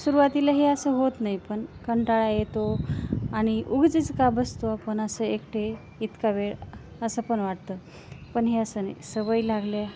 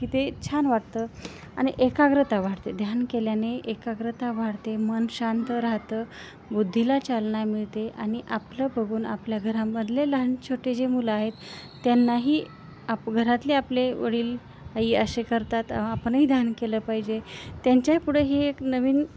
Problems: constant background noise, background conversations at intervals